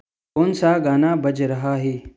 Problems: background sounds at intervals